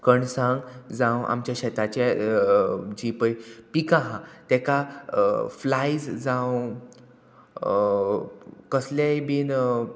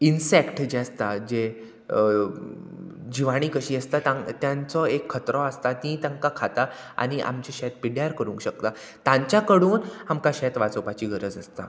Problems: constant background noise